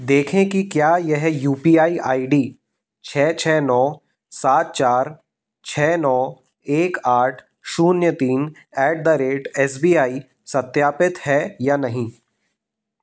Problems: none marked